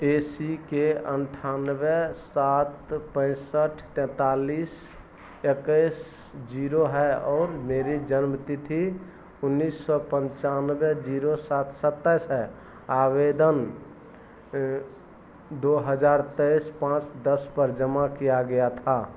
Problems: none marked